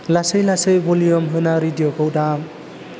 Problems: constant background noise